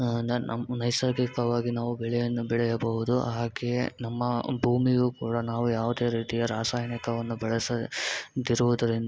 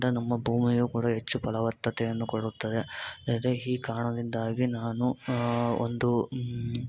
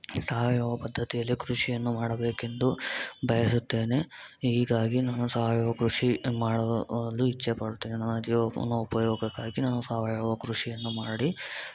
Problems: constant background noise